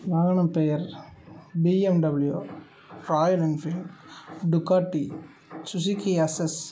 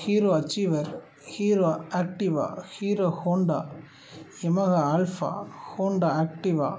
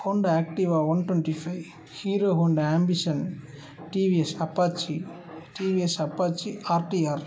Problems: none marked